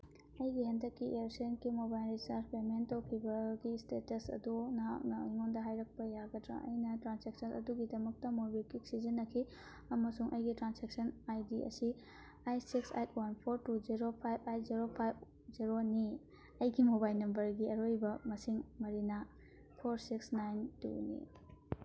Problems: background conversations at intervals